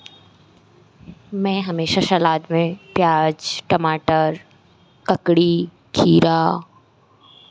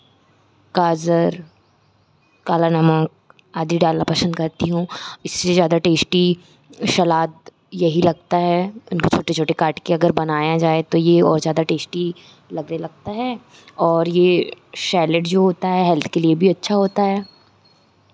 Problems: constant background noise